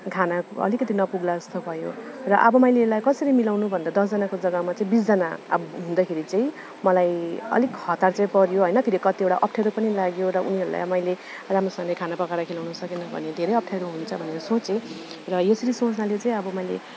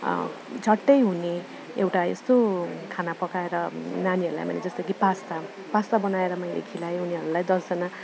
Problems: none marked